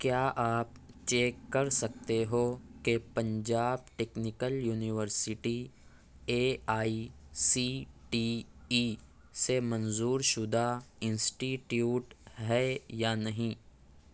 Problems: none marked